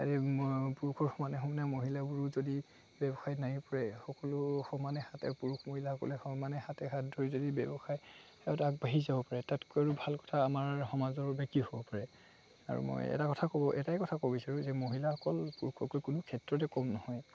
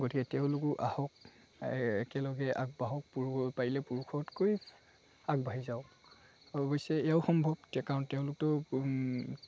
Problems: constant background noise, background conversations at intervals